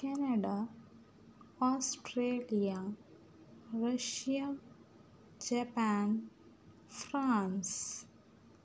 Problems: none marked